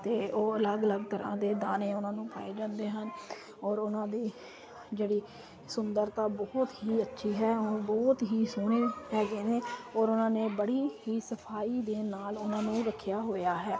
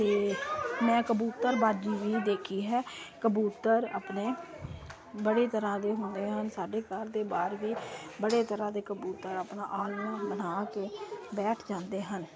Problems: constant background noise